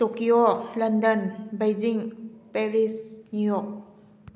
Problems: none marked